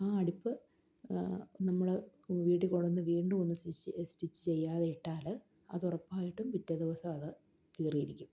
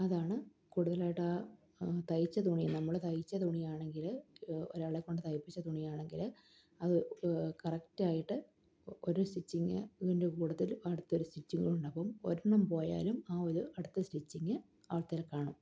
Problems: none marked